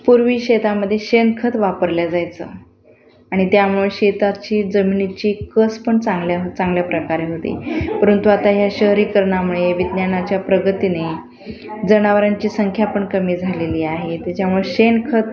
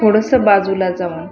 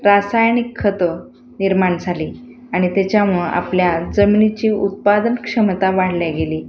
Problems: none marked